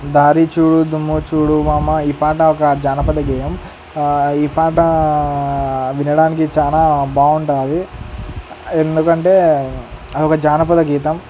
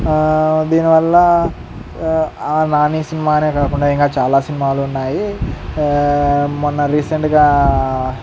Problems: constant background noise